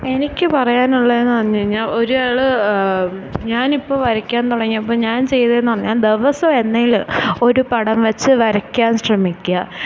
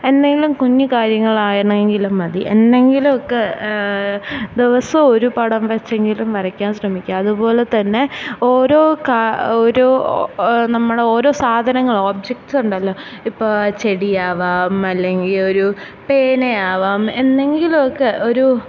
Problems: background sounds at intervals